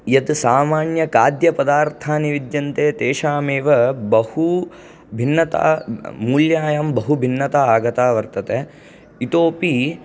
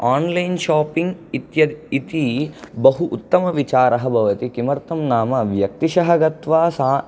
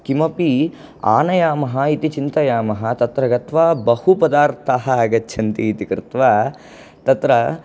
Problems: none marked